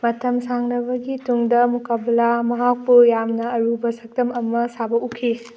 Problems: background sounds at intervals